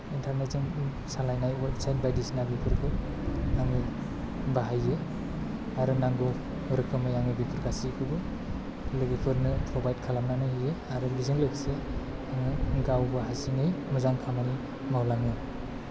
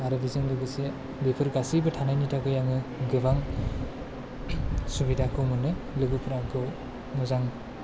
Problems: low volume